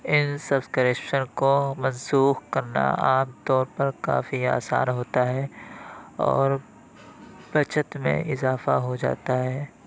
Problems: none marked